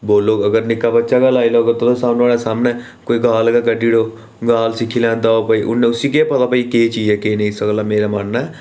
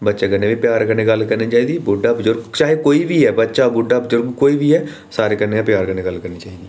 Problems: none marked